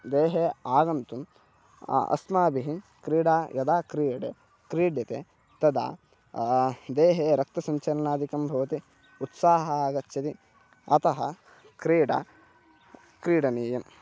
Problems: constant background noise, continuous background conversations